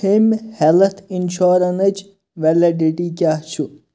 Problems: background sounds at intervals